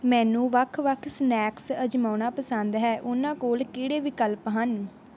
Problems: background sounds at intervals